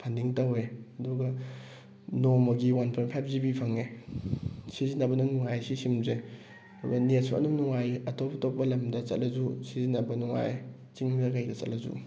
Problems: background sounds at intervals